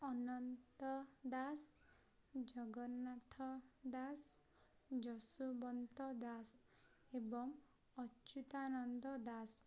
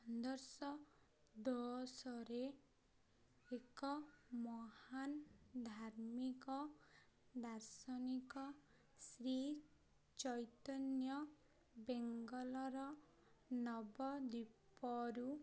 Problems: none marked